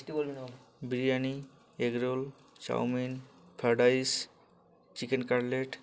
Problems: constant background noise